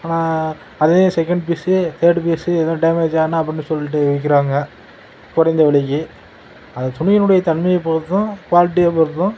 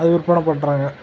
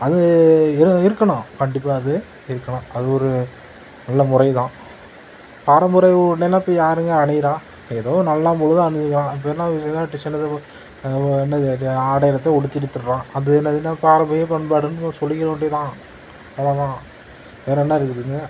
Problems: constant background noise